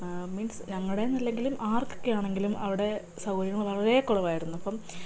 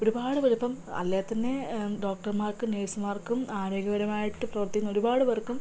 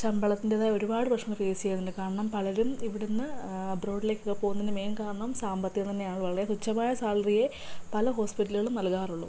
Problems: low volume